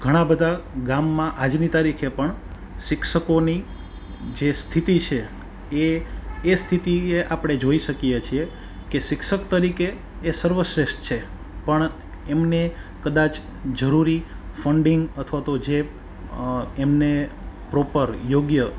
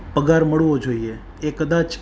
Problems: background sounds at intervals